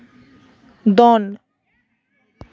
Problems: background conversations at intervals